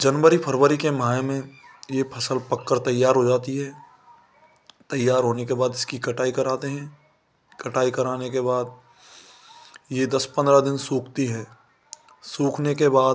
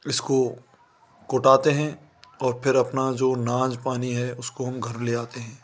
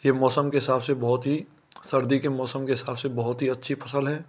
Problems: constant background noise